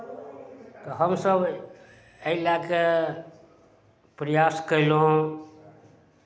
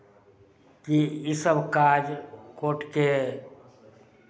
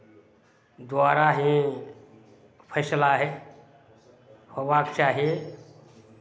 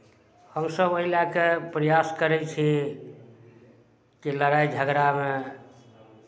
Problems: none marked